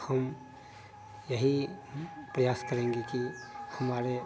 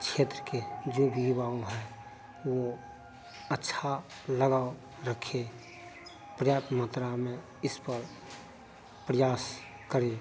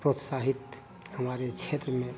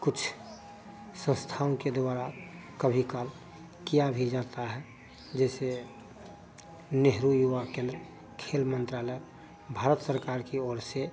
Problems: none marked